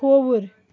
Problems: constant background noise